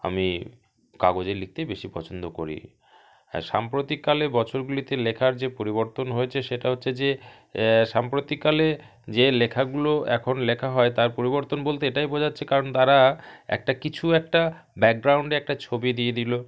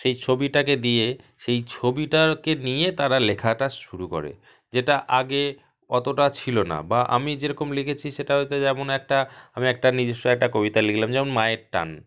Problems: none marked